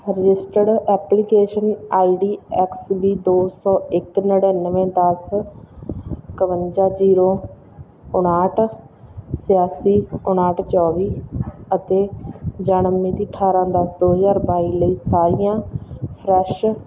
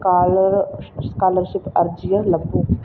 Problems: background sounds at intervals